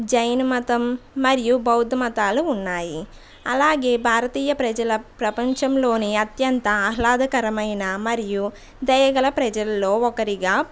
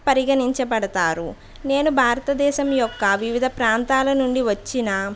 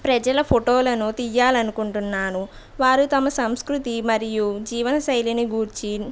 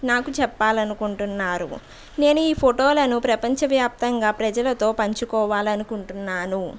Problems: background sounds at intervals, background conversations at intervals